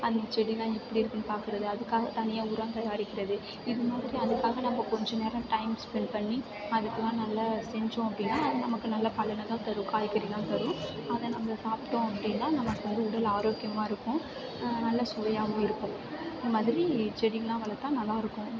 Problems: background sounds at intervals